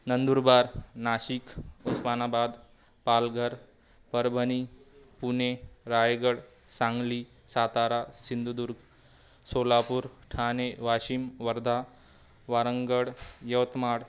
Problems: none marked